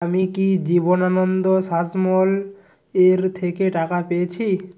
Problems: constant background noise